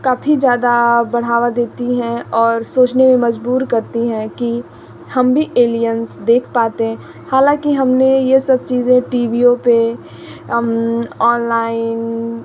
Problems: constant background noise